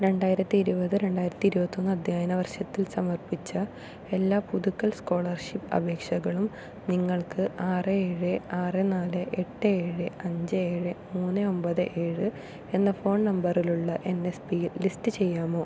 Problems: low volume